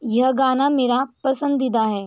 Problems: constant background noise